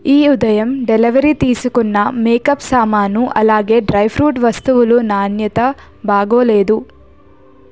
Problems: background sounds at intervals